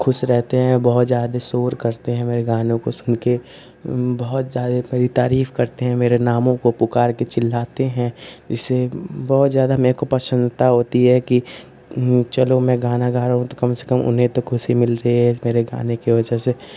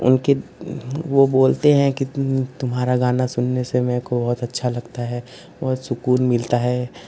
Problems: constant background noise